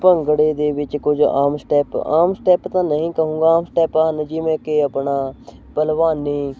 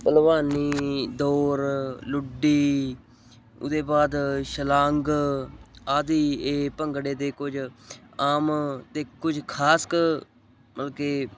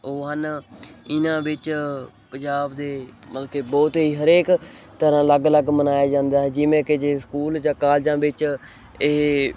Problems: constant background noise